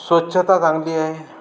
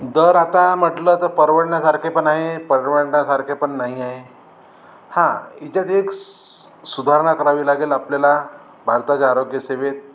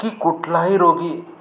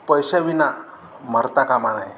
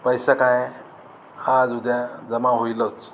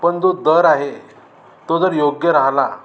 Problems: none marked